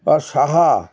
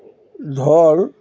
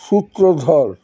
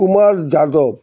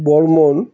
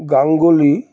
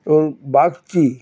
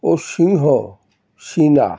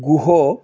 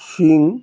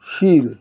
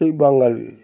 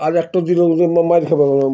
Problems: background sounds at intervals